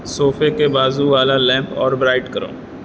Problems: constant background noise